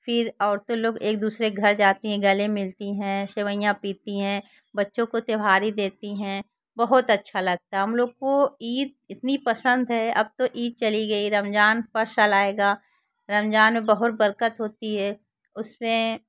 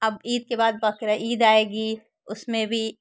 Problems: constant background noise